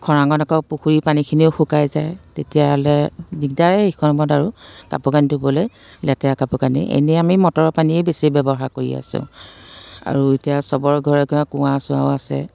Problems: constant background noise